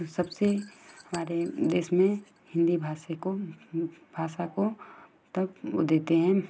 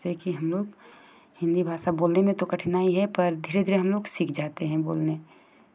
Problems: constant background noise